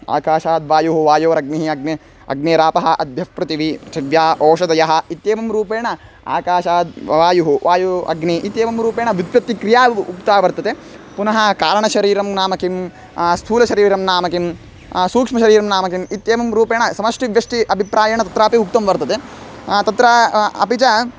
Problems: constant background noise